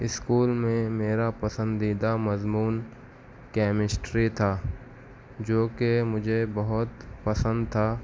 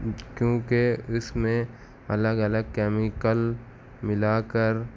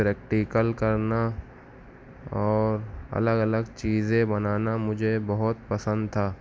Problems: constant background noise